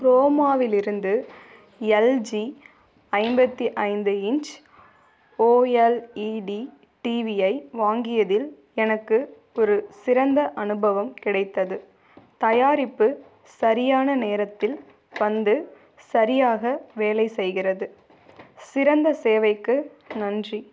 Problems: background sounds at intervals